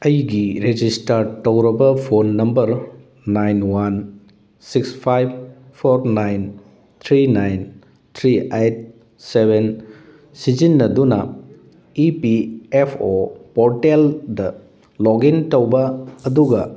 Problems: none marked